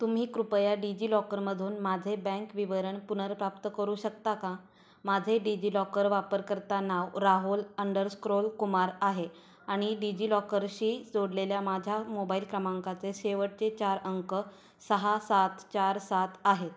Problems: background sounds at intervals